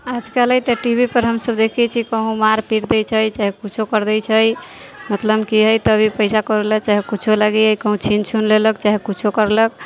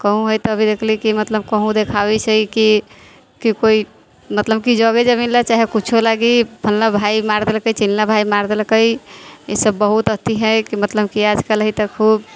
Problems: background conversations at intervals